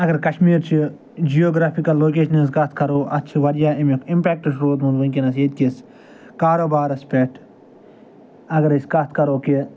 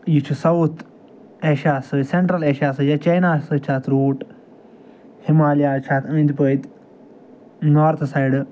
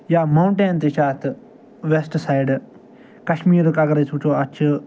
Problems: none marked